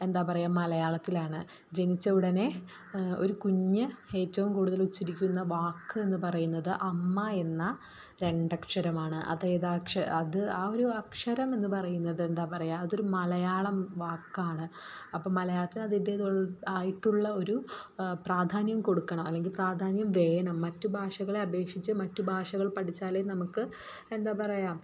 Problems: low volume